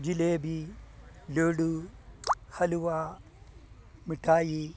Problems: low volume